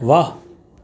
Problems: none marked